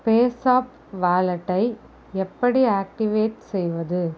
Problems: none marked